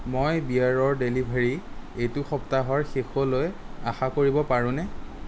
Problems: none marked